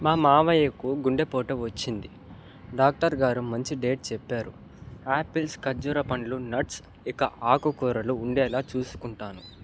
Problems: background sounds at intervals